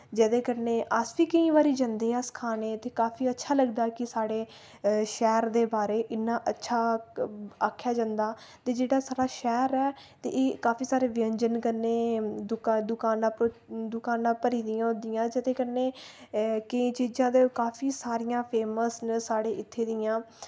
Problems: none marked